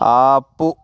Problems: none marked